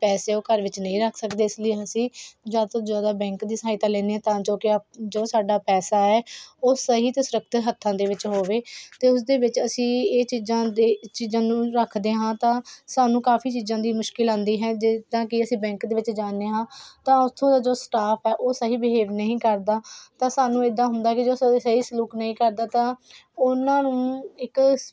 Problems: none marked